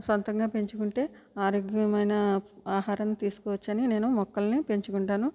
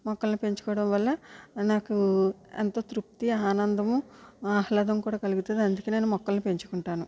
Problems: low volume